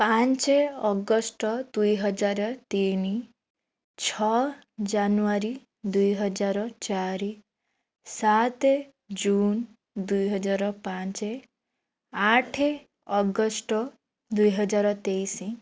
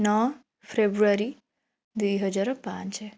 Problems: none marked